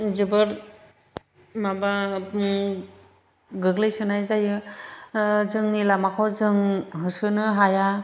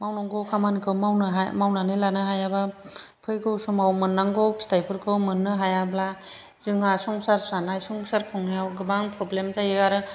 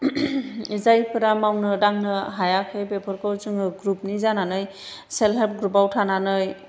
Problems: none marked